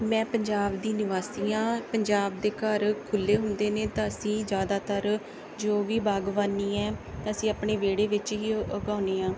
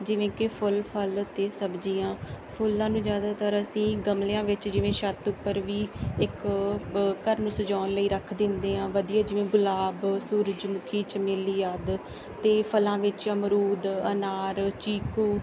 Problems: background sounds at intervals